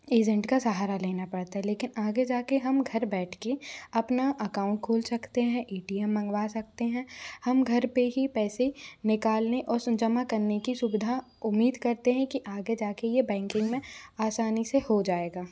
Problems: constant background noise